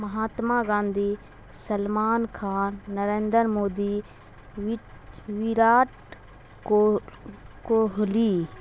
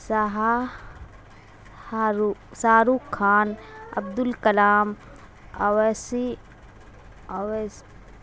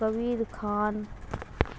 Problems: constant background noise